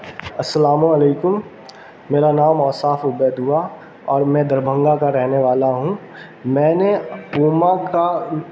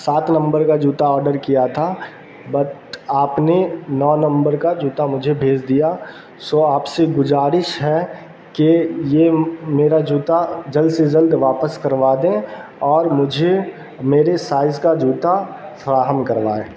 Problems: constant background noise